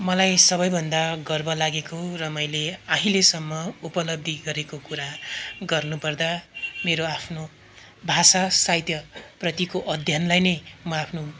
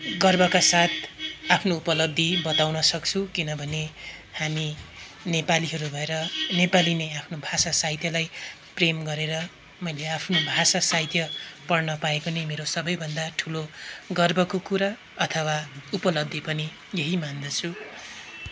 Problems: none marked